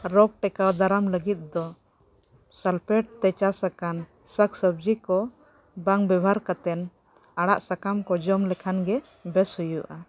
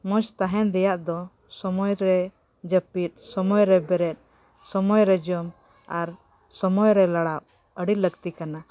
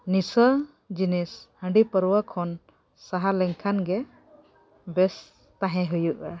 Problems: background sounds at intervals